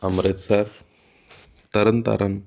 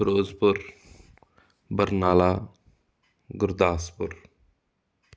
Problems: background sounds at intervals